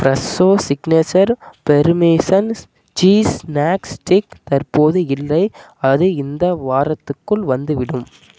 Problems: none marked